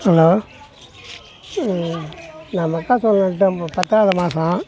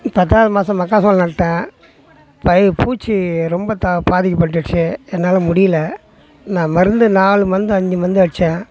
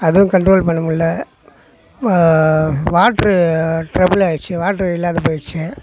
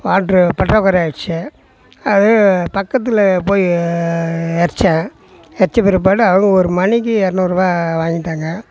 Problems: background conversations at intervals